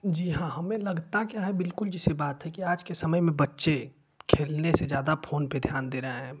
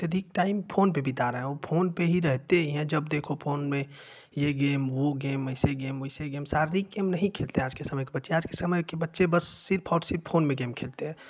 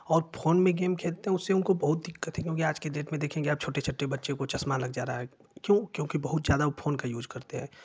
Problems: none marked